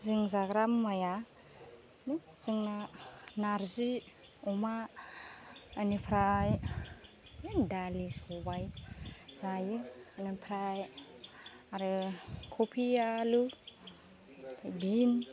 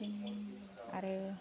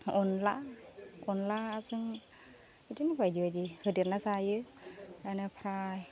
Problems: low volume